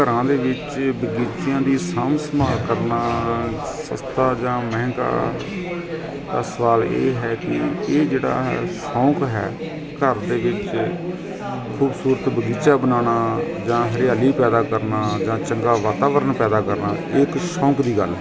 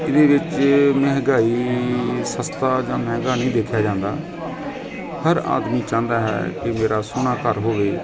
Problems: constant background noise, continuous background conversations